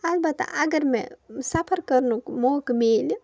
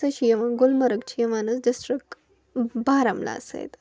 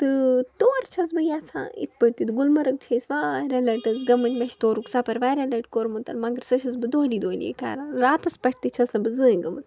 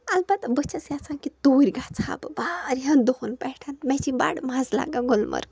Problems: background sounds at intervals